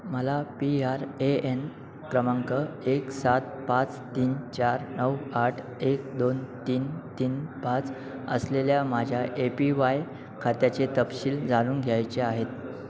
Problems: none marked